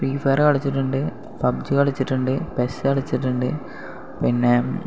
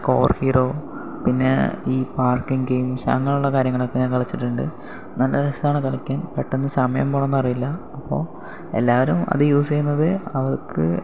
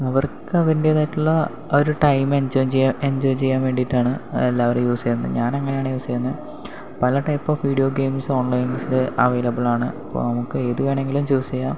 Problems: none marked